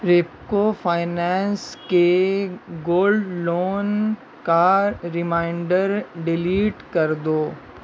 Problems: constant background noise